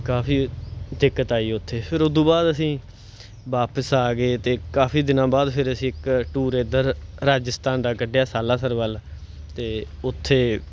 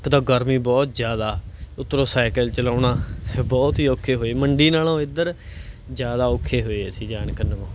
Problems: none marked